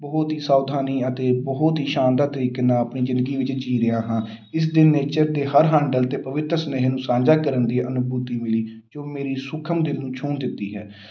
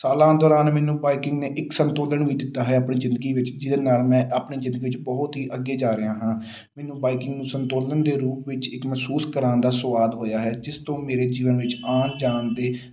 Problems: background sounds at intervals